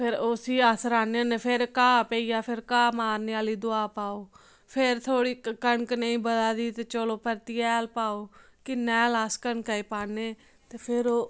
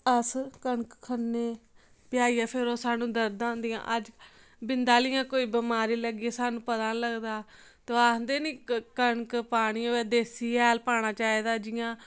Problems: none marked